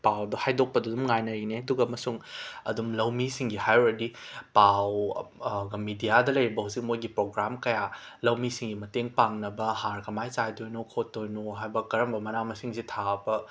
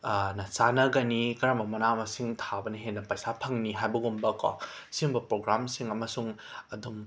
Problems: background sounds at intervals